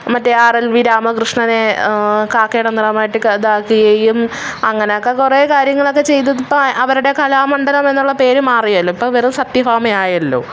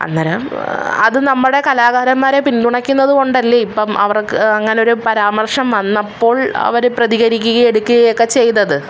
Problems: background sounds at intervals